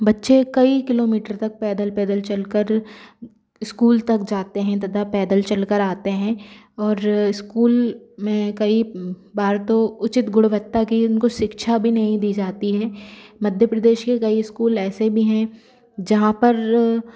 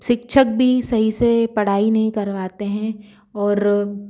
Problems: constant background noise